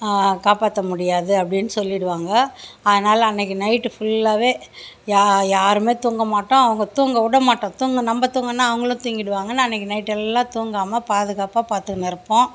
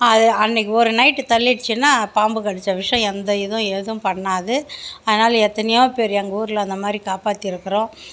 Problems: none marked